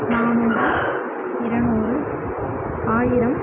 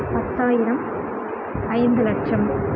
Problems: constant background noise, continuous background conversations, low volume